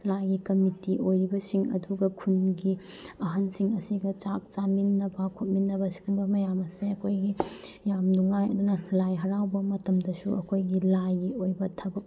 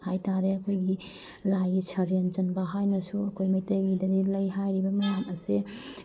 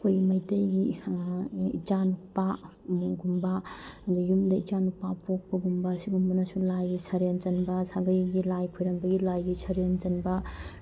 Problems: none marked